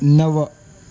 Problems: constant background noise